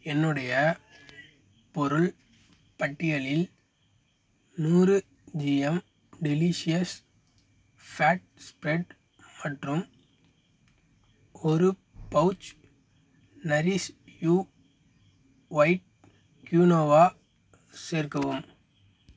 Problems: constant background noise